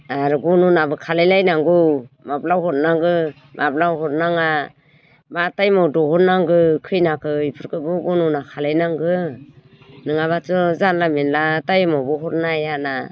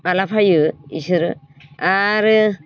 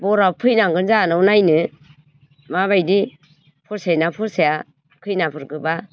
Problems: none marked